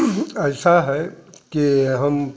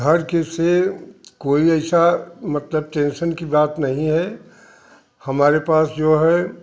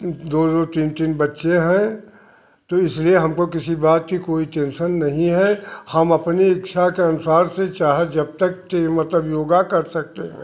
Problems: none marked